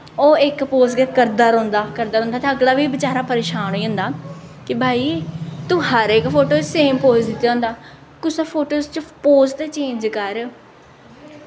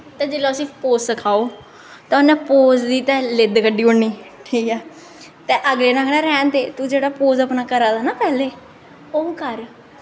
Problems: echo